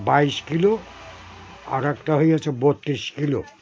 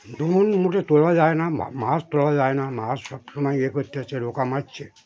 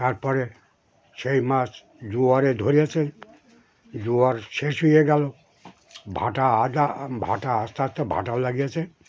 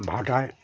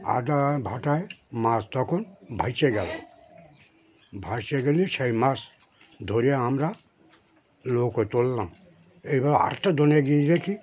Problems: constant background noise, continuous background conversations